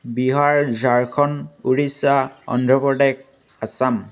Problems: none marked